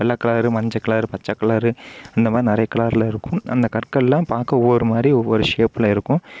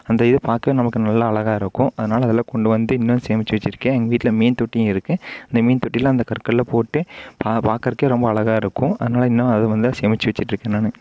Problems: none marked